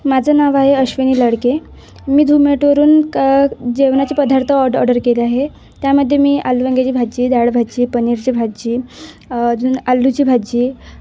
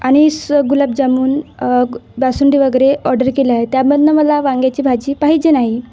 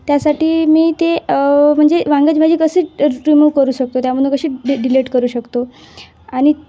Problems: none marked